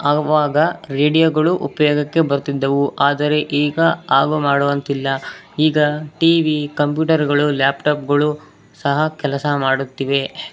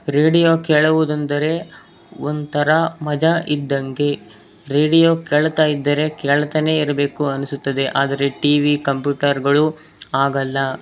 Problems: background sounds at intervals